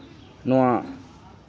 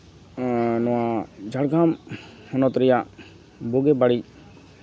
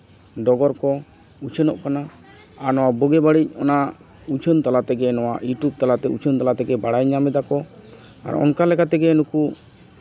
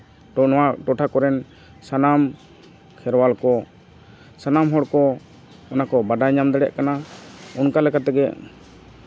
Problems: constant background noise